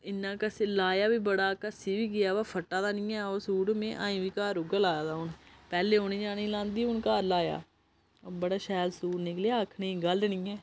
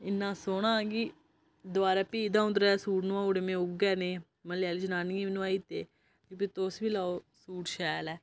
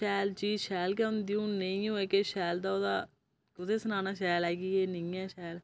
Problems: low volume